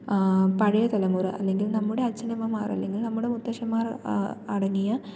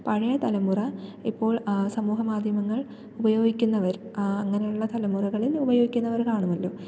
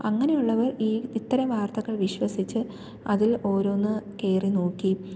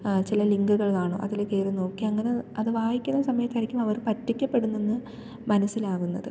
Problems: low volume